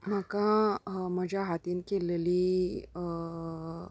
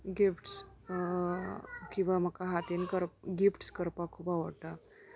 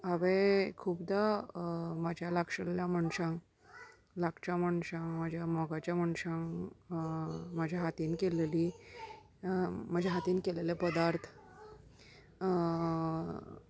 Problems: background sounds at intervals, continuous background conversations